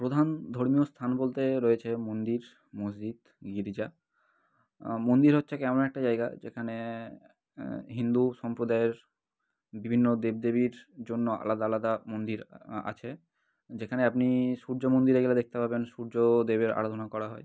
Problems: background sounds at intervals